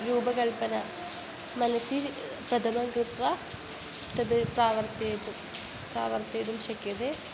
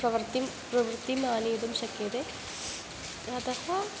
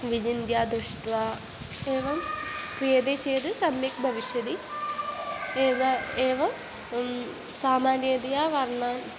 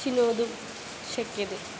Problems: constant background noise